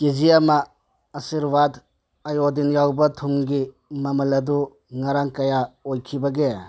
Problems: none marked